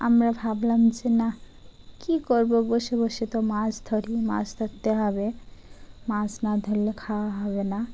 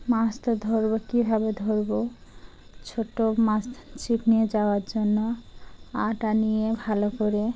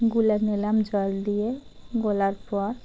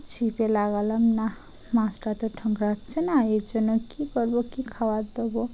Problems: none marked